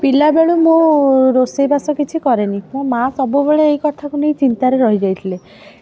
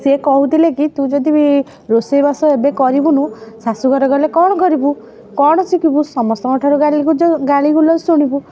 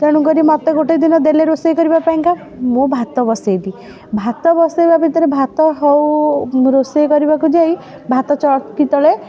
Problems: background conversations at intervals